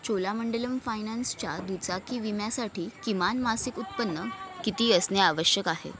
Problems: constant background noise, continuous background conversations